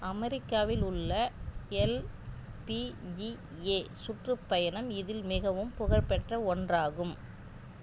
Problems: none marked